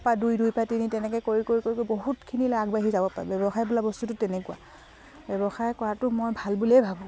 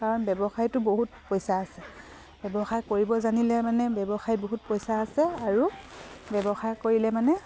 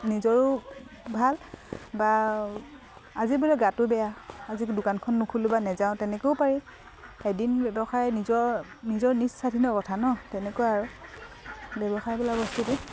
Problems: none marked